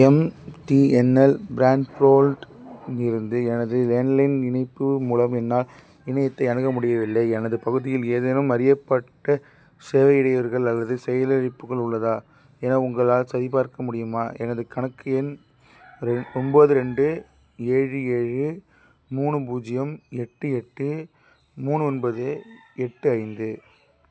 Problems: none marked